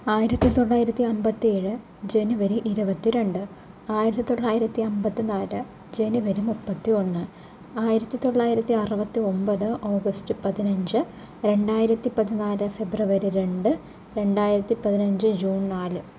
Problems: low volume